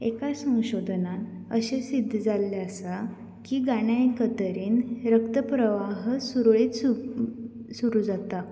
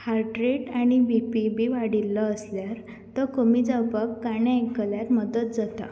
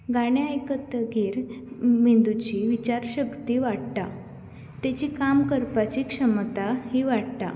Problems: none marked